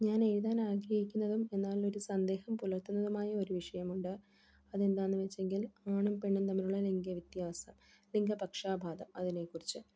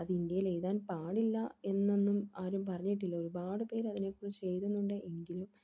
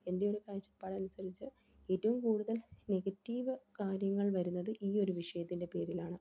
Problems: none marked